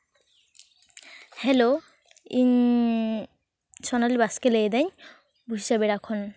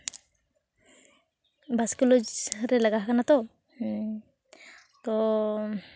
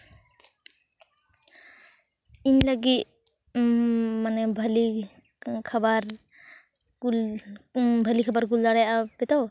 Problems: none marked